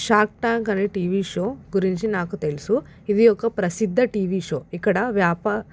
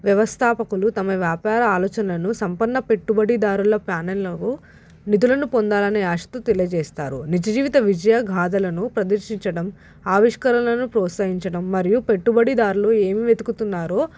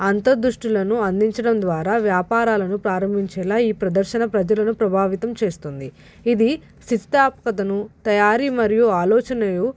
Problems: background sounds at intervals